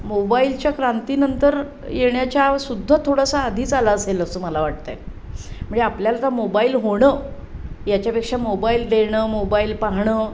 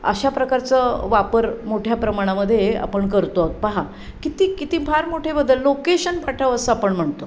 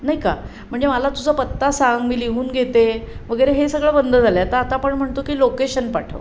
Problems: constant background noise